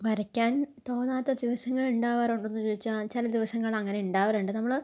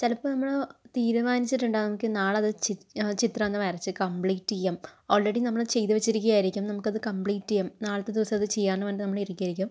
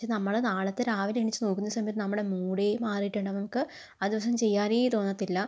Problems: none marked